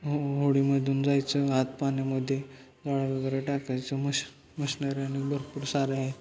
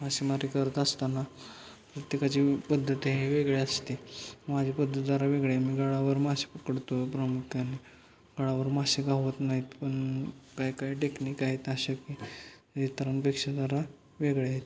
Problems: constant background noise, continuous background conversations